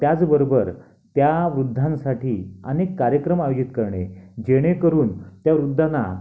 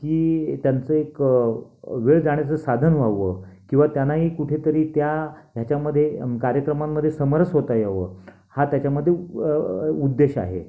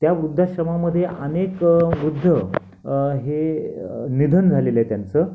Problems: constant background noise